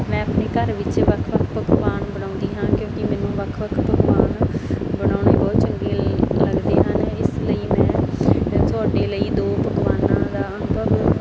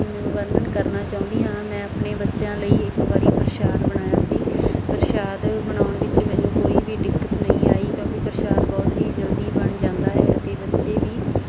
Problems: constant background noise